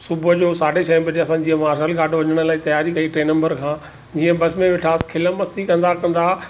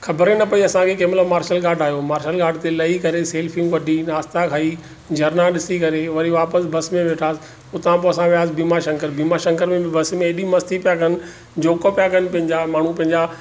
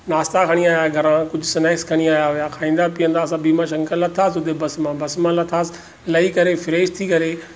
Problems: none marked